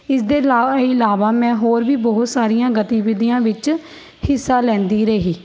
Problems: none marked